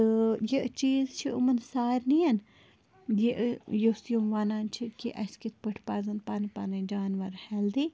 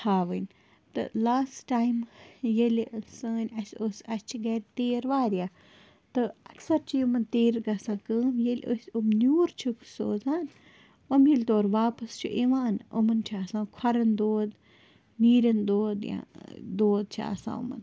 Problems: constant background noise